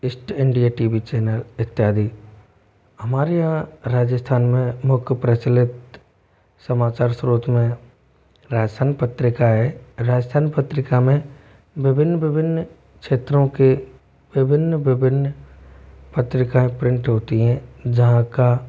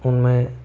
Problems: none marked